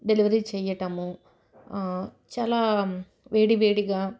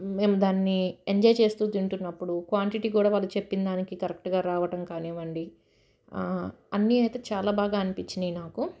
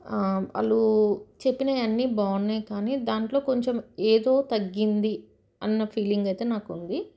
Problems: none marked